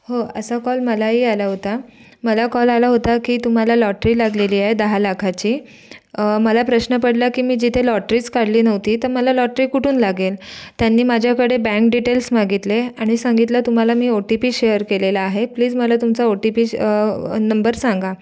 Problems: none marked